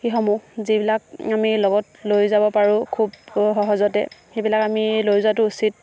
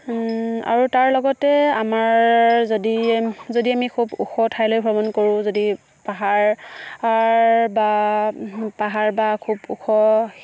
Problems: background sounds at intervals